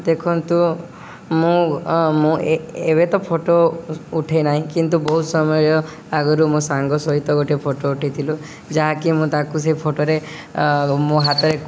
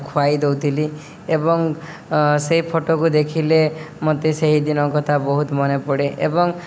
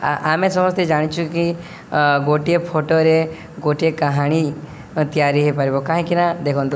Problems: none marked